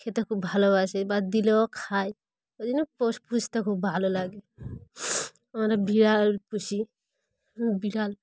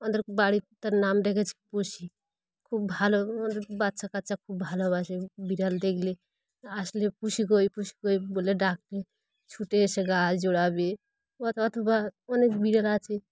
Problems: none marked